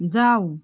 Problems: constant background noise